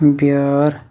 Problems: background sounds at intervals